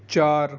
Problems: none marked